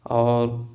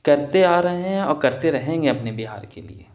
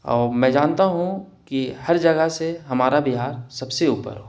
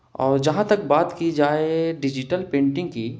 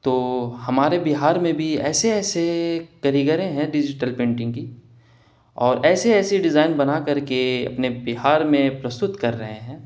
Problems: none marked